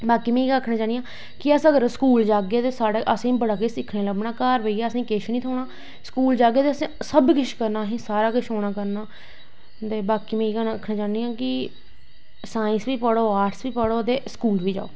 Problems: none marked